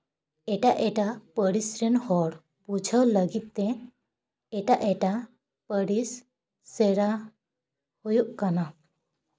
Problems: background sounds at intervals